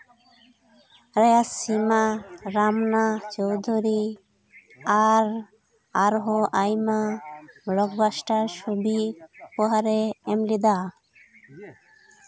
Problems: constant background noise, background conversations at intervals